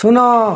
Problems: constant background noise